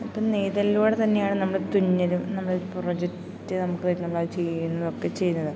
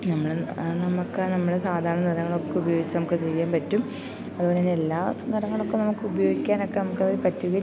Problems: constant background noise, low volume